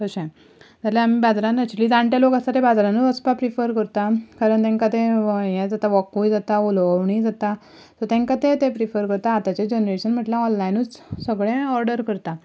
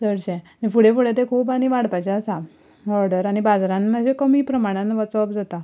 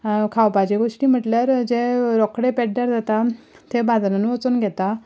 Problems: background sounds at intervals